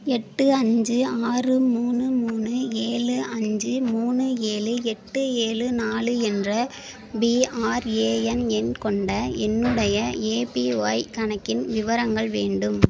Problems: constant background noise